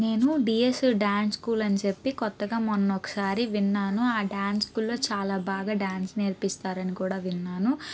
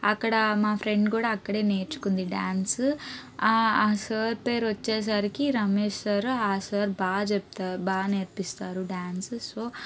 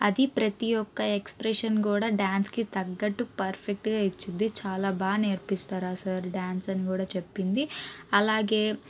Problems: background sounds at intervals, background conversations at intervals